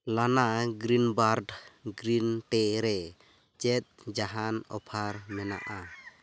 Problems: constant background noise